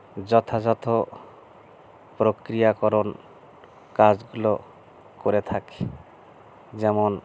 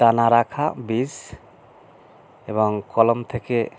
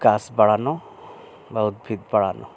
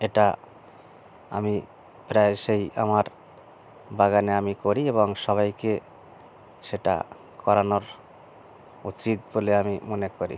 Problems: none marked